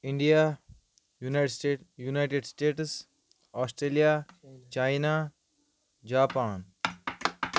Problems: constant background noise